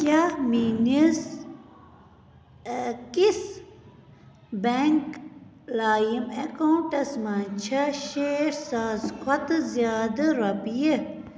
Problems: none marked